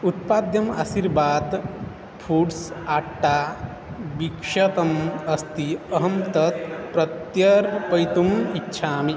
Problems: constant background noise